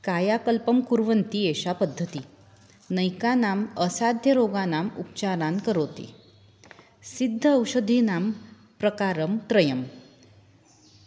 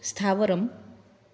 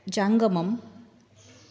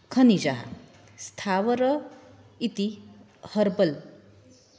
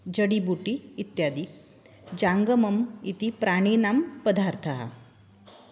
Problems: background sounds at intervals